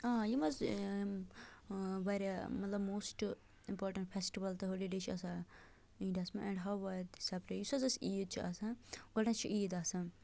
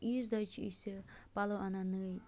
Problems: low volume